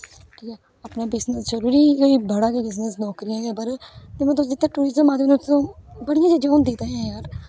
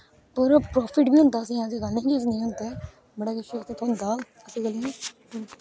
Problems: background sounds at intervals